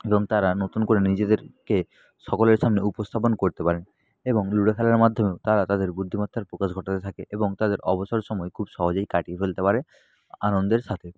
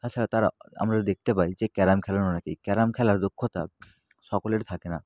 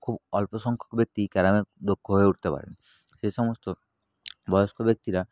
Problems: none marked